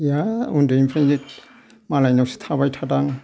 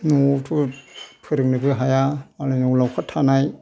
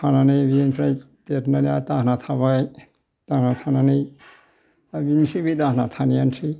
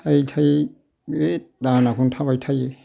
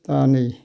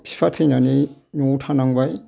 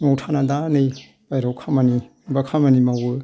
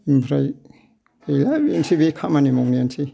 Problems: background sounds at intervals